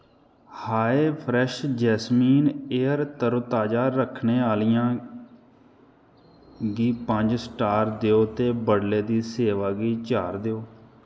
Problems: echo